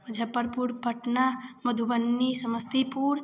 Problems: none marked